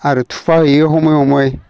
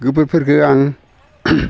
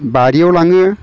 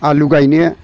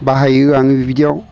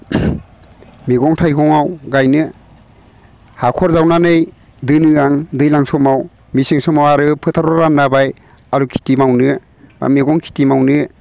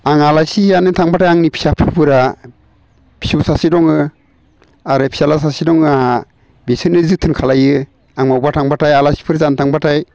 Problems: none marked